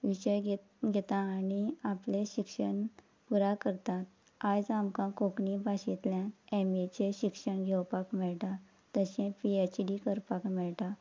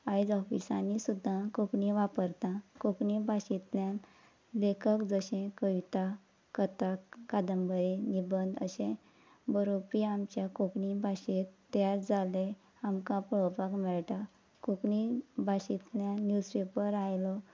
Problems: constant background noise